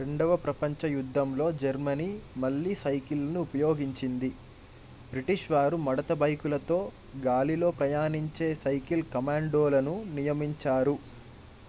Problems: constant background noise